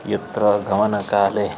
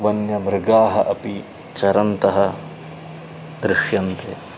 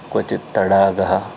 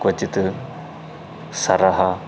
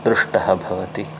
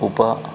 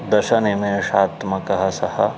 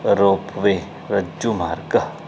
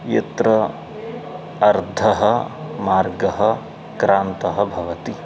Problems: none marked